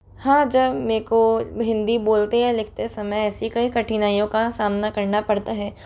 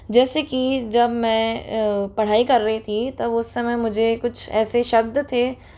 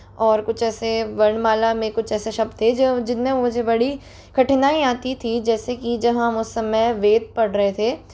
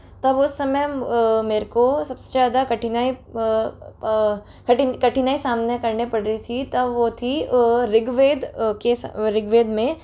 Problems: constant background noise